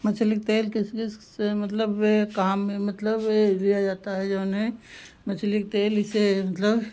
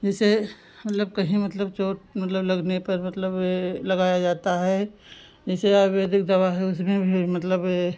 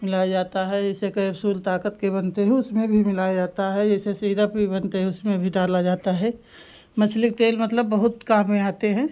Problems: background sounds at intervals